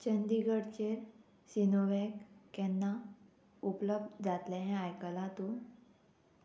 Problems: constant background noise